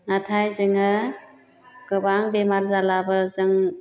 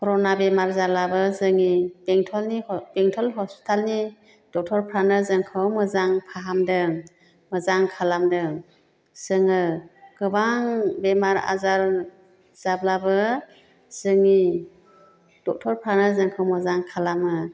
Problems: none marked